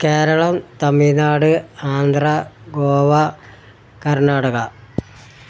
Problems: none marked